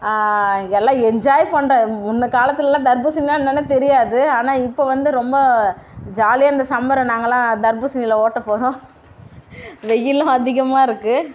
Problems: none marked